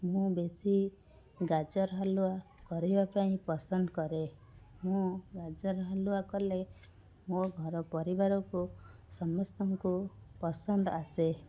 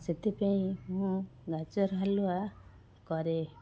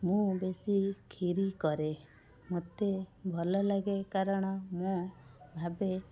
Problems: constant background noise, continuous background conversations